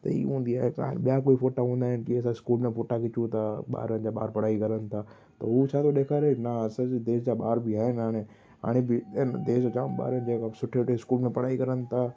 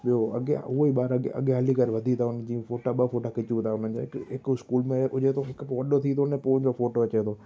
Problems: constant background noise, echo